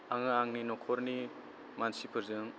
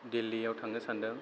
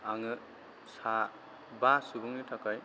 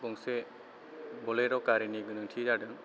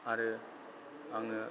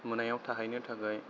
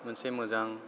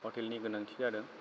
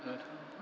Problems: low volume